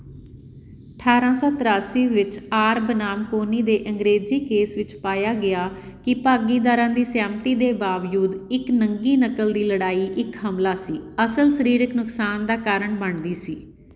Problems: none marked